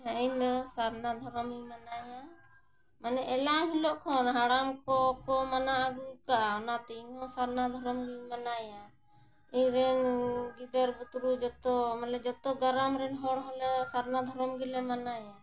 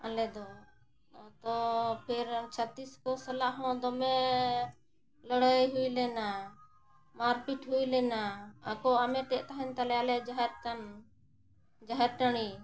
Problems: constant background noise